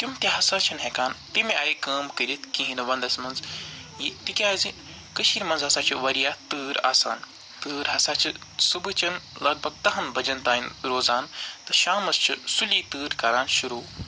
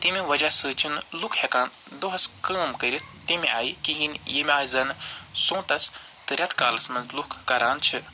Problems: constant background noise, background conversations at intervals